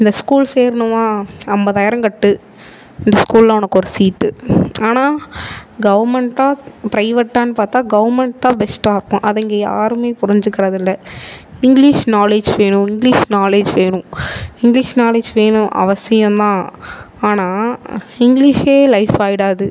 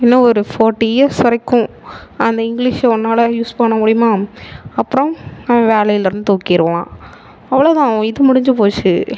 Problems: none marked